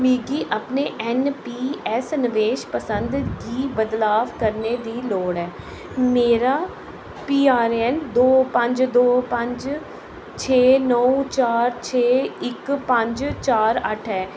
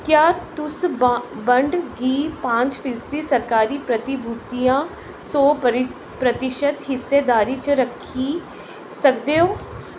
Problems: constant background noise, echo